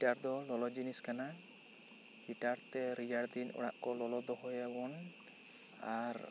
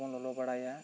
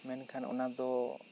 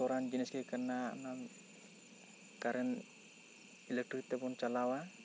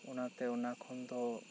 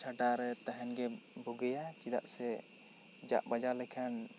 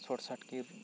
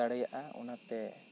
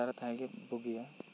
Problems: constant background noise